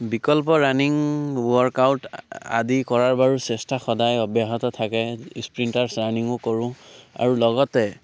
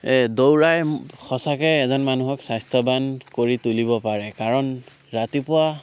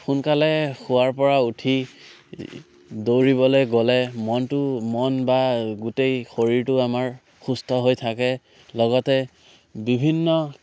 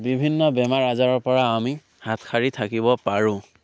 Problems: none marked